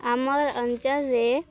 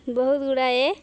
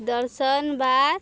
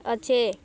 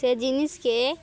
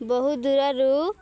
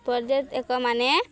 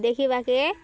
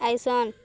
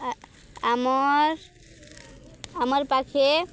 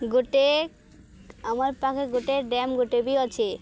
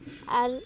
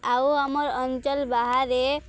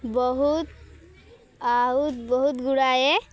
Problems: background sounds at intervals, background conversations at intervals